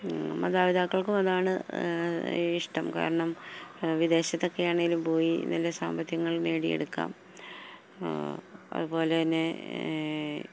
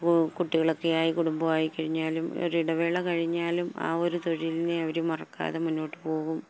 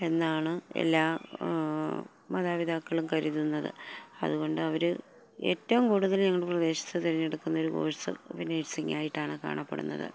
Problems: none marked